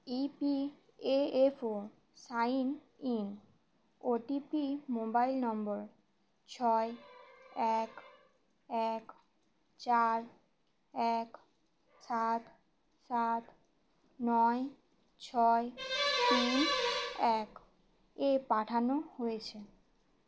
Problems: background sounds at intervals